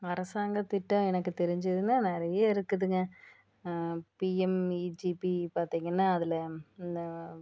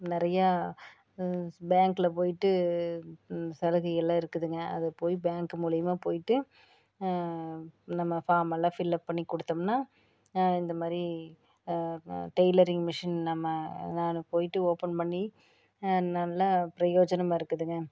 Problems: none marked